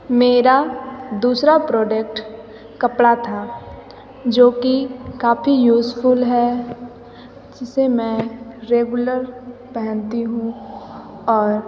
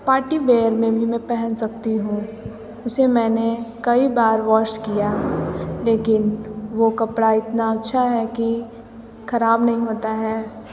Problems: background conversations at intervals, echo